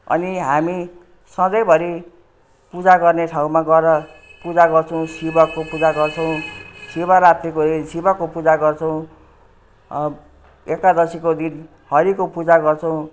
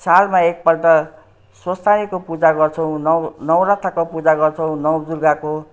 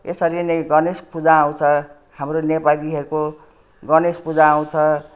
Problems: none marked